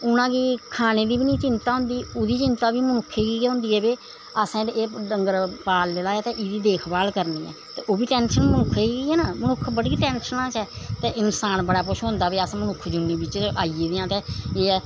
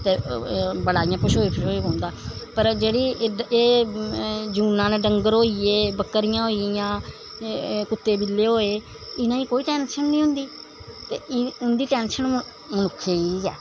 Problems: none marked